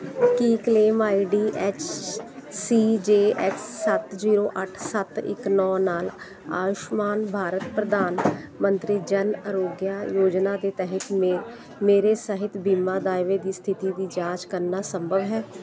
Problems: constant background noise